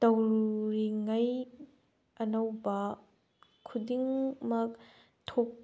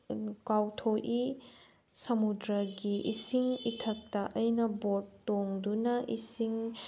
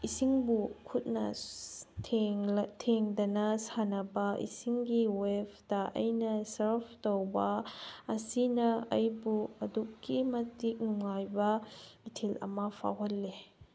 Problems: background sounds at intervals